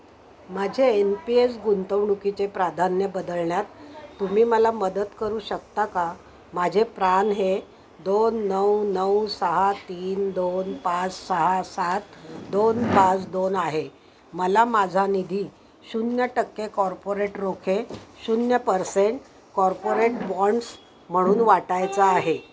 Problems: constant background noise, background conversations at intervals